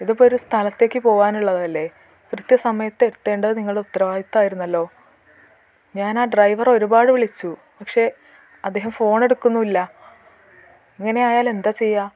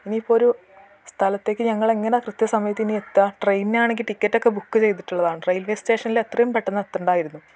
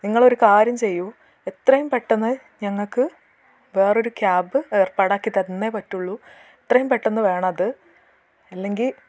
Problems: none marked